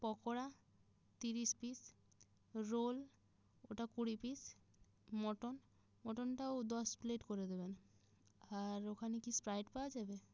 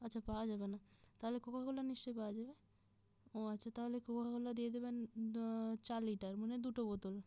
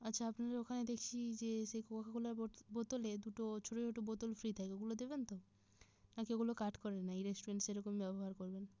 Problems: none marked